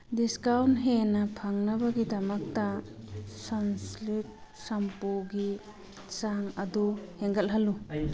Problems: background conversations at intervals